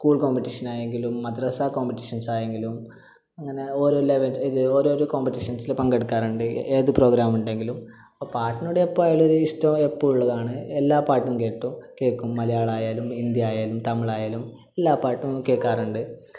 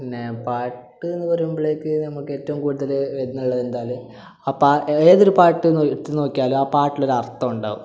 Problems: low volume